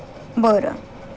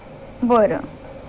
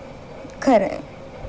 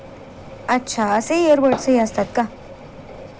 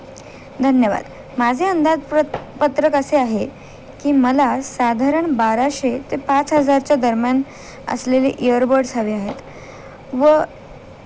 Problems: none marked